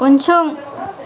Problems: constant background noise